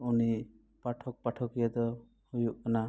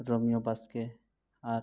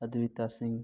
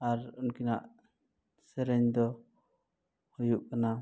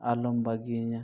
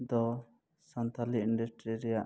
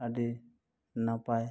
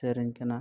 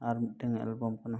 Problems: none marked